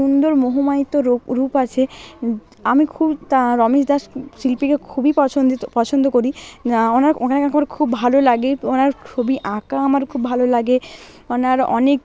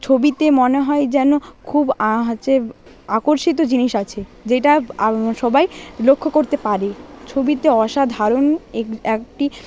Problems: background sounds at intervals